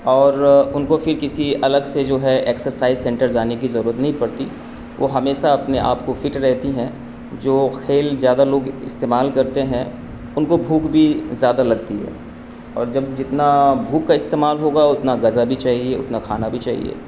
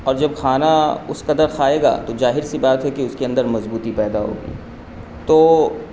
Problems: constant background noise